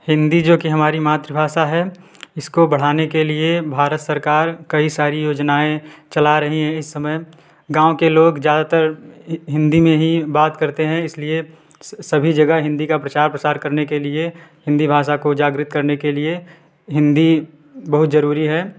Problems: background sounds at intervals